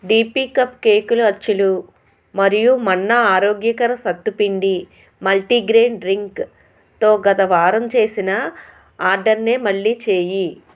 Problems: constant background noise